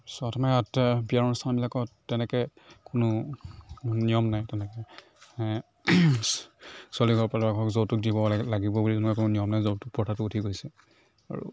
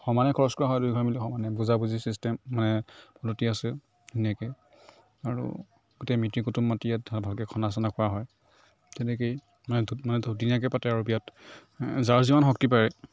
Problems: none marked